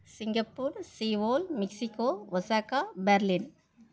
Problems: none marked